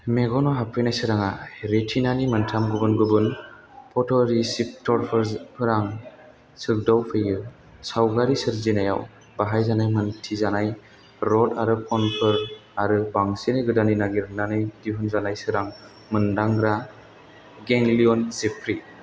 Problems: constant background noise